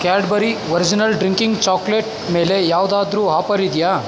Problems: constant background noise